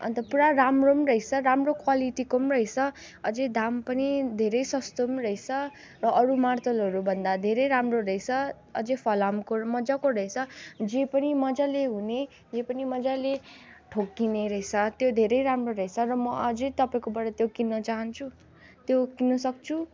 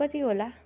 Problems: none marked